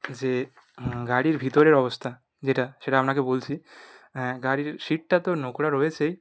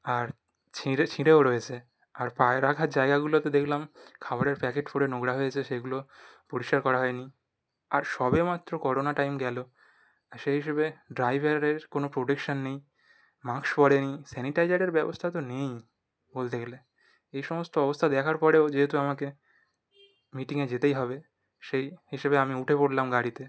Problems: none marked